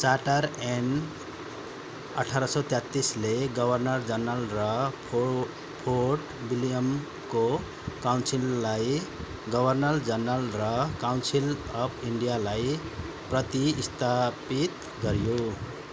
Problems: constant background noise